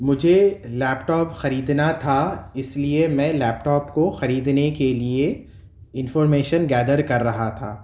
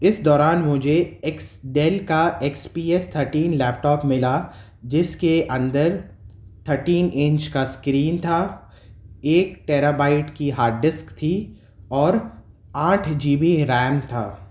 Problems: none marked